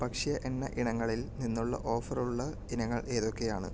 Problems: low volume